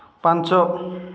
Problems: none marked